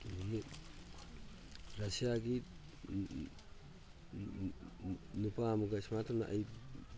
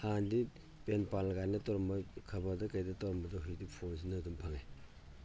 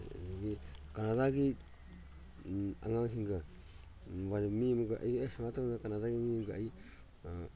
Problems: background sounds at intervals